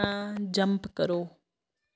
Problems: background sounds at intervals